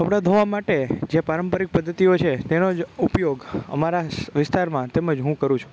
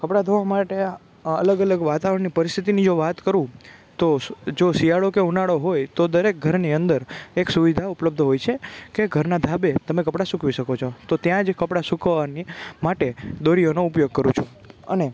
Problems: background sounds at intervals